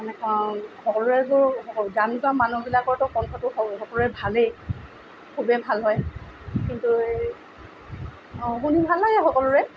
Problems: background sounds at intervals